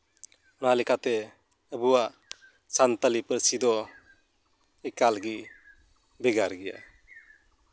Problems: background sounds at intervals